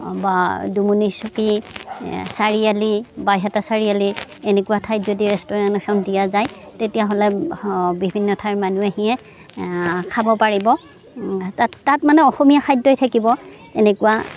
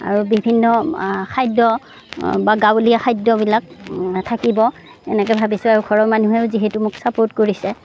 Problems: background sounds at intervals, background conversations at intervals